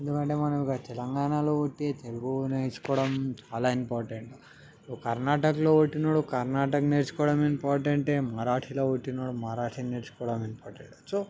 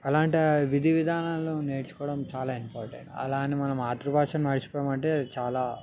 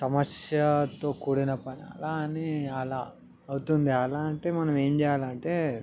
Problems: background sounds at intervals, background conversations at intervals